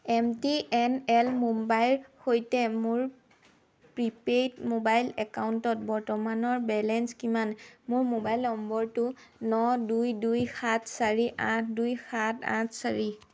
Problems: background sounds at intervals